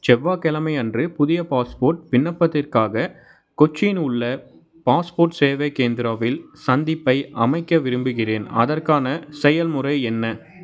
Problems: background sounds at intervals